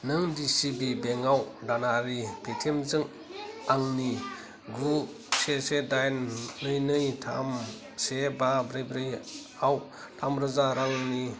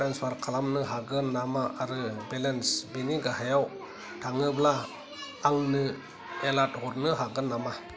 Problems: continuous background conversations